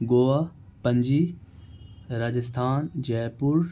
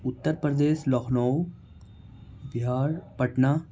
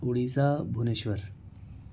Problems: low volume